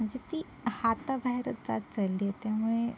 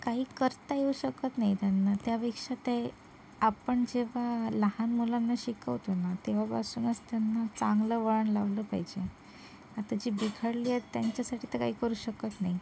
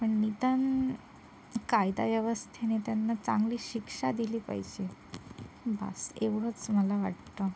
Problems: background sounds at intervals